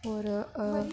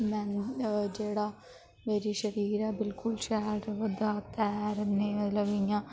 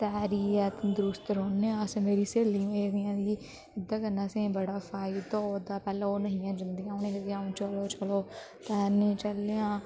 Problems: constant background noise